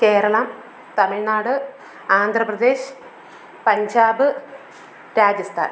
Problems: constant background noise